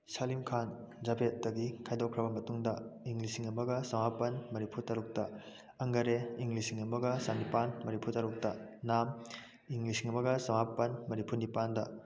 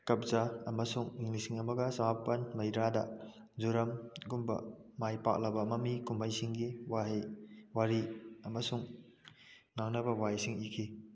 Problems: low volume